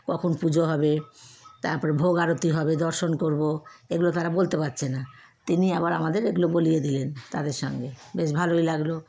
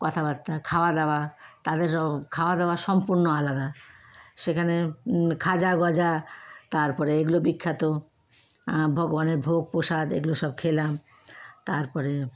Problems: constant background noise, background conversations at intervals